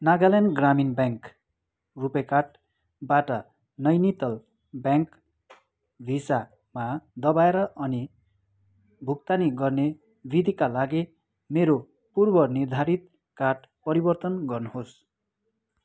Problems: background sounds at intervals